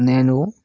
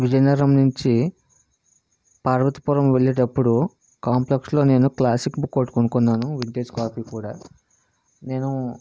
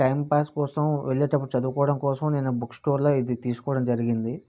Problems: none marked